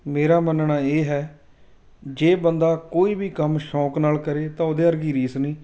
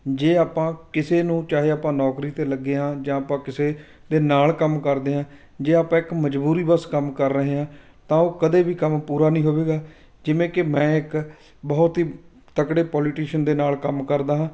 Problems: background sounds at intervals